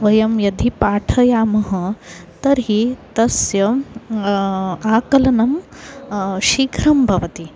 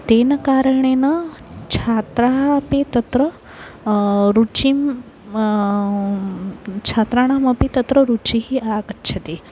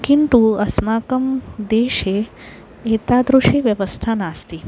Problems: constant background noise